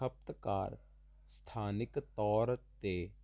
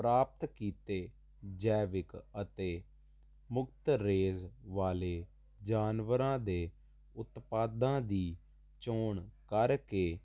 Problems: constant background noise